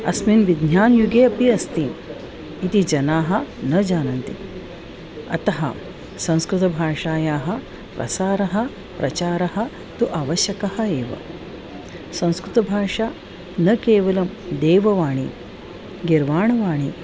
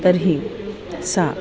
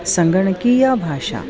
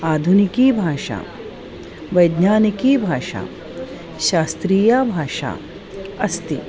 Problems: constant background noise, continuous background conversations